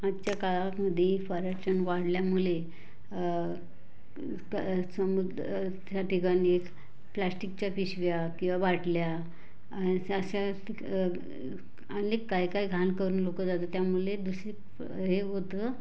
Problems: constant background noise, background conversations at intervals